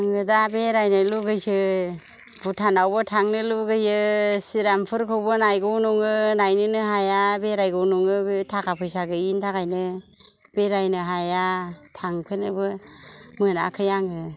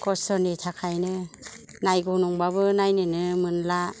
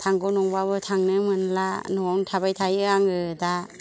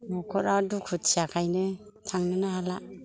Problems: low volume